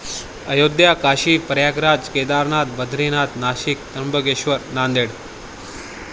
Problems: none marked